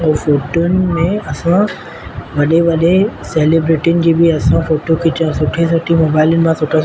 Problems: constant background noise